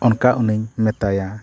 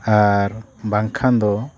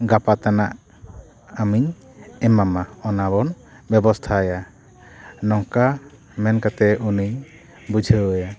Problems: background sounds at intervals, continuous background conversations